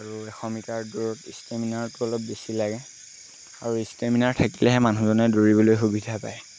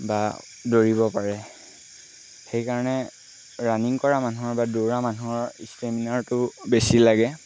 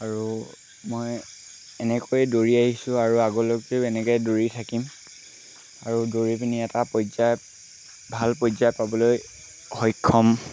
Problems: constant background noise